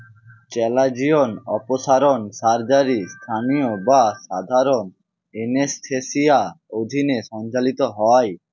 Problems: constant background noise